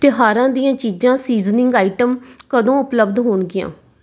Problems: none marked